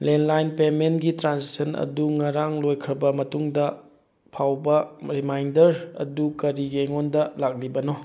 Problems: none marked